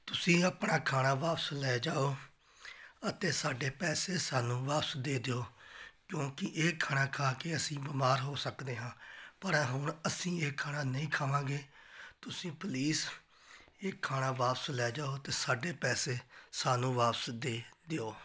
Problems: background sounds at intervals